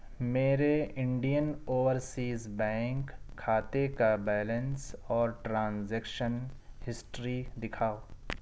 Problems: none marked